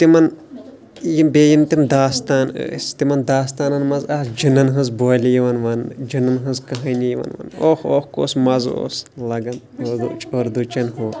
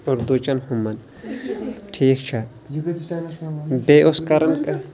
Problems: constant background noise, background conversations at intervals